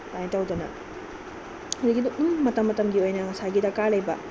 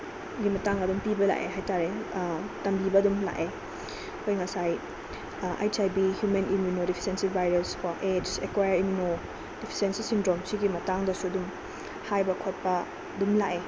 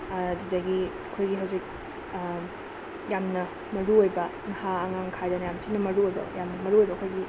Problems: constant background noise